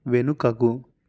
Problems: none marked